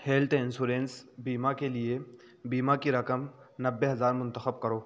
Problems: constant background noise